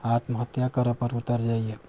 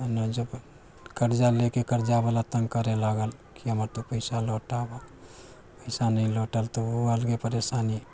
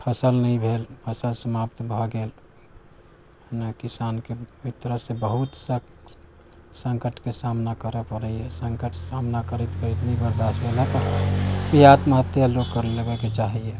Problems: none marked